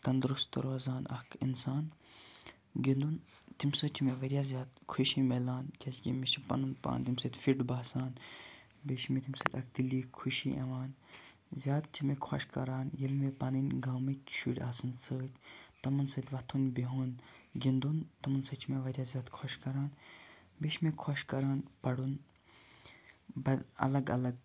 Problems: background sounds at intervals, low volume